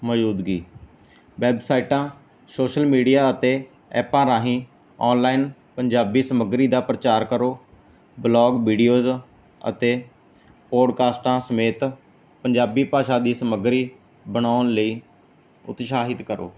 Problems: background sounds at intervals